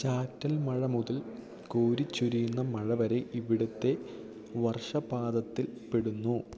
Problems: none marked